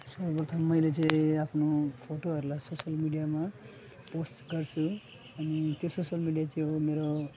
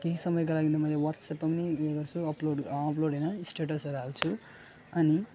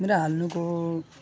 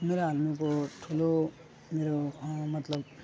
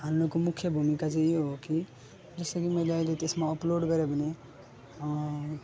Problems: constant background noise, continuous background conversations, low volume